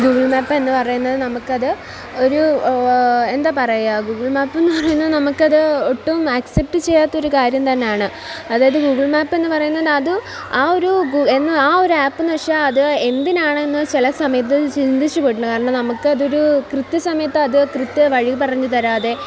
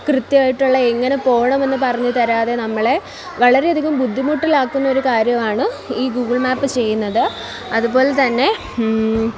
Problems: constant background noise, background conversations at intervals